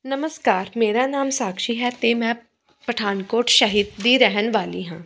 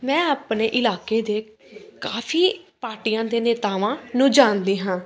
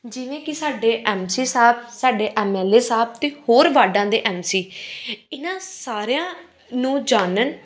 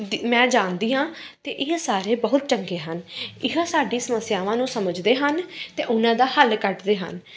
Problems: constant background noise